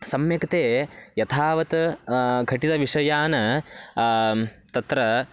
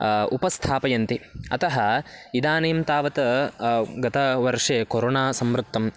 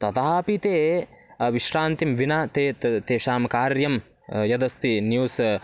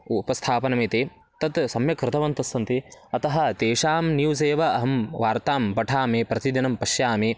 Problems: none marked